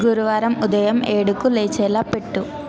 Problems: continuous background conversations